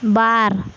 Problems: constant background noise